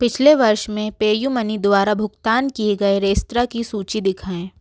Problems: background sounds at intervals